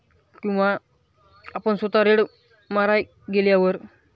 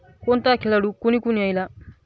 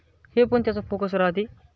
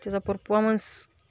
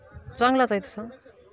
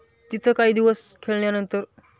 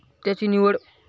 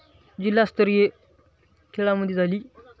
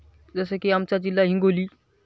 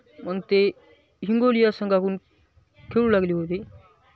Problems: none marked